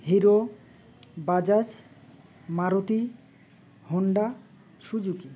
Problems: background sounds at intervals